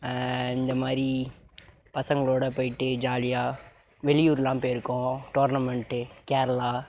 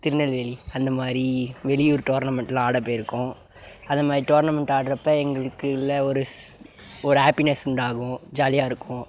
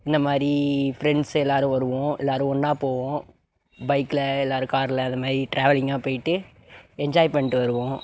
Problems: background sounds at intervals